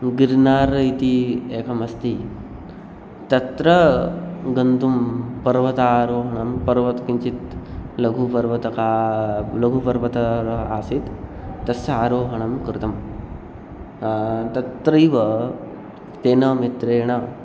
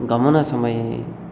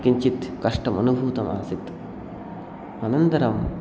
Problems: none marked